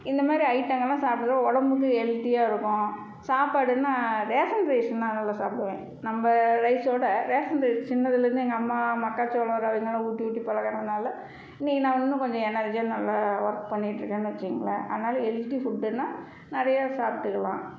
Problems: none marked